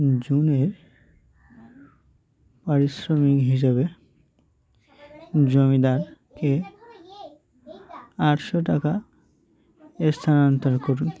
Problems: background sounds at intervals, continuous background conversations